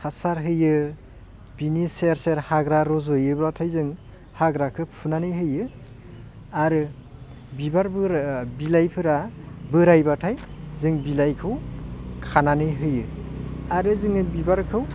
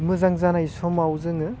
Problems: constant background noise